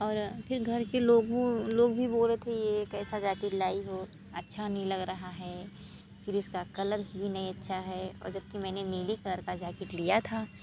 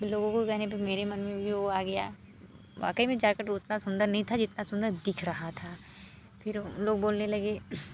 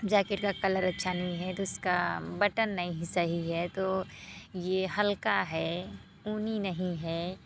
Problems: constant background noise